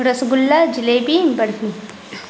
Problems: constant background noise